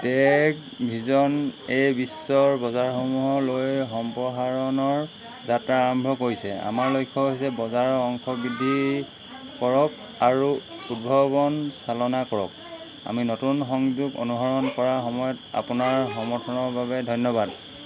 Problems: background sounds at intervals